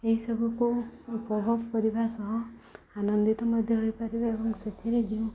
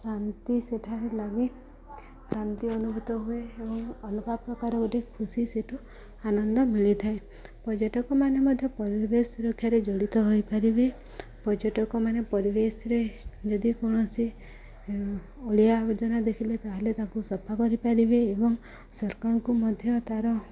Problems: background sounds at intervals, background conversations at intervals